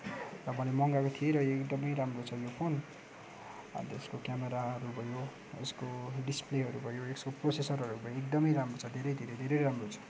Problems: background sounds at intervals